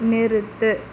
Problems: none marked